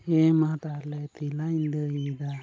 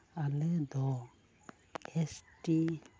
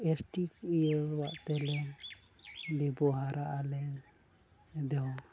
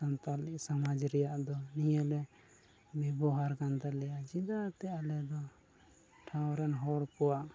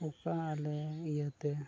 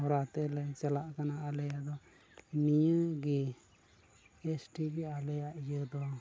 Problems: constant background noise, low volume